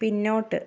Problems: none marked